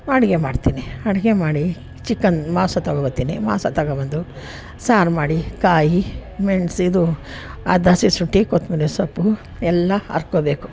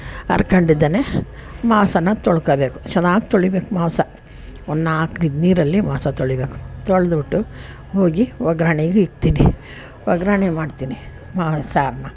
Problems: none marked